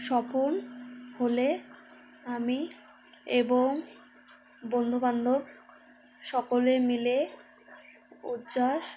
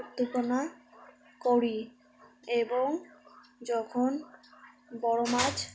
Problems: constant background noise, background conversations at intervals